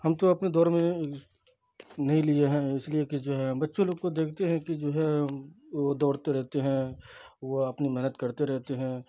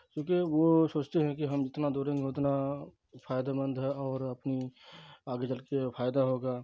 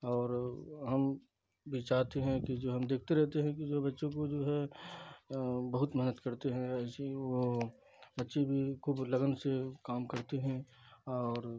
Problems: constant background noise, low volume